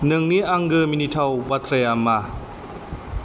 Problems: constant background noise